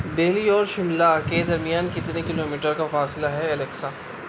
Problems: constant background noise